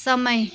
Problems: continuous background conversations